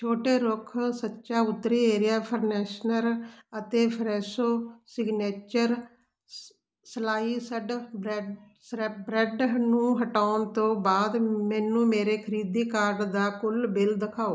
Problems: none marked